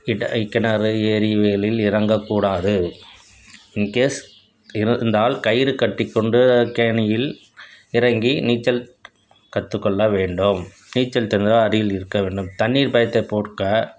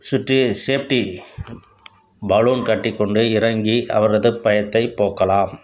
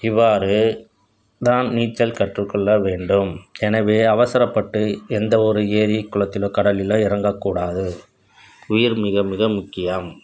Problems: constant background noise